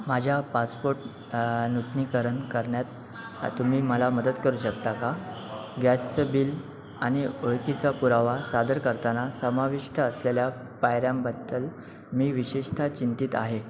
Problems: constant background noise